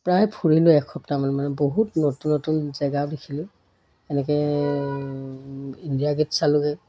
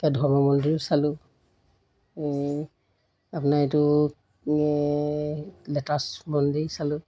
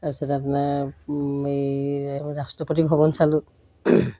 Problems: background sounds at intervals